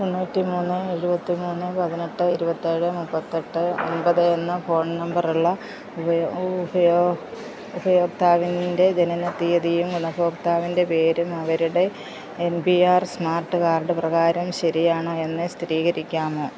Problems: constant background noise, low volume